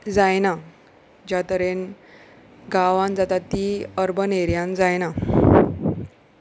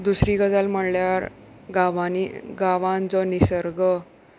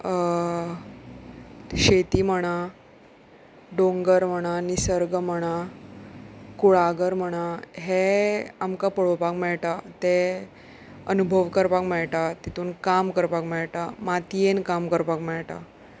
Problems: none marked